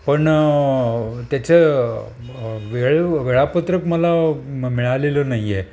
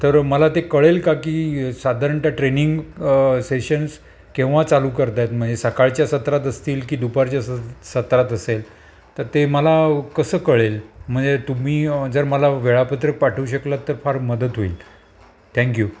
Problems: constant background noise, background conversations at intervals